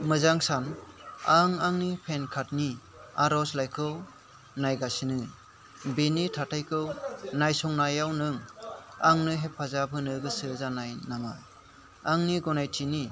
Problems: none marked